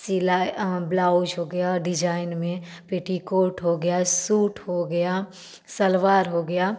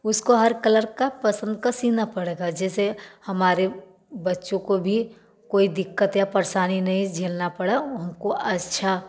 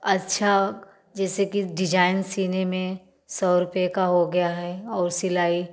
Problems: background sounds at intervals, background conversations at intervals, echo